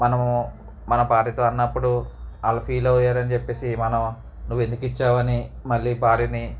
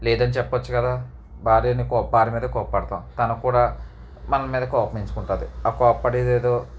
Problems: none marked